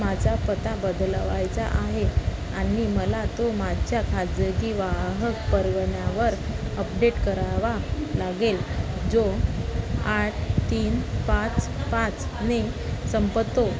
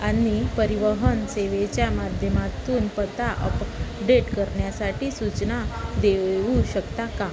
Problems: constant background noise, continuous background conversations